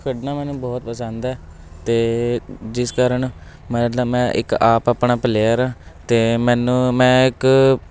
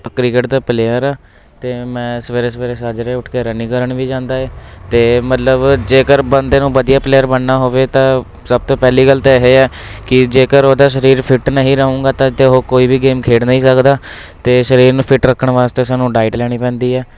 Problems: constant background noise